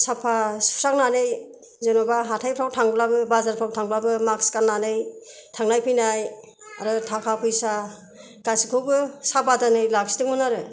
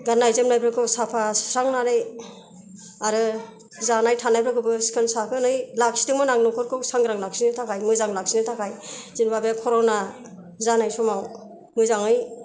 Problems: none marked